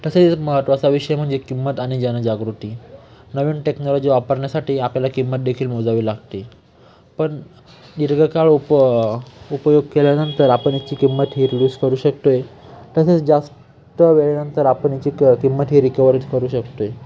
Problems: constant background noise, continuous background conversations